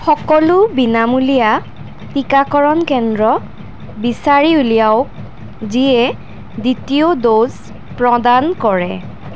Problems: none marked